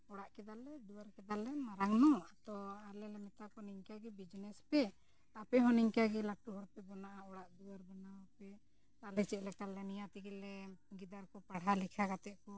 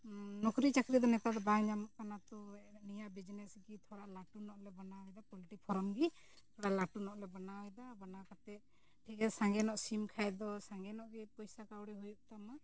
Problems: low volume